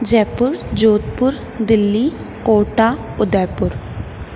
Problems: constant background noise, echo